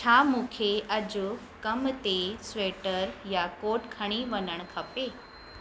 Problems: constant background noise